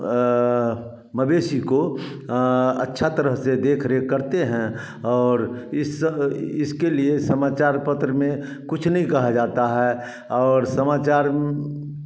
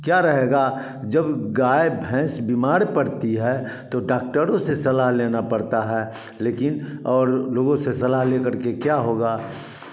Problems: background sounds at intervals, background conversations at intervals, echo